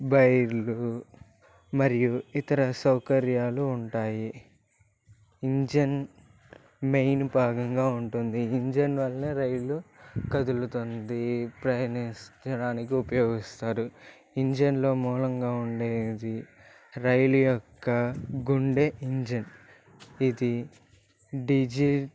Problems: constant background noise